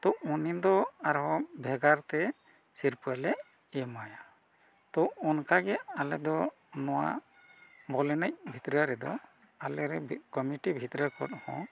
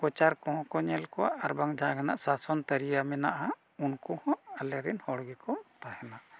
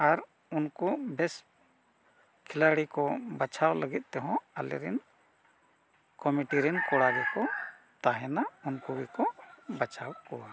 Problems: none marked